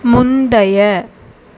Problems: constant background noise